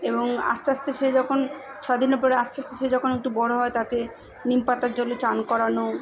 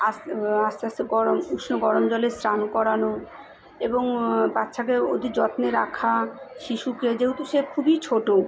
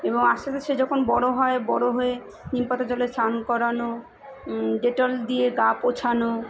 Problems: continuous background conversations